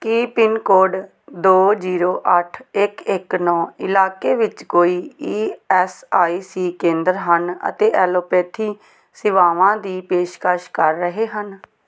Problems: none marked